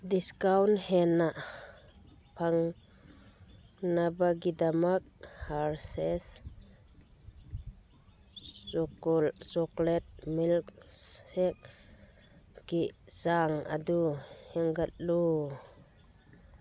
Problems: background sounds at intervals, low volume